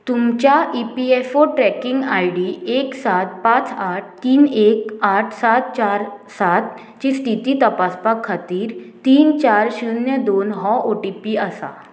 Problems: constant background noise